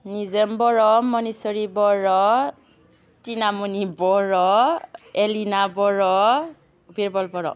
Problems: constant background noise